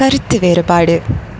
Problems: background sounds at intervals